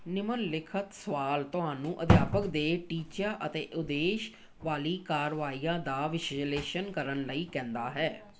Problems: background sounds at intervals, background conversations at intervals